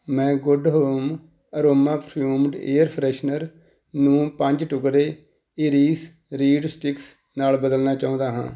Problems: none marked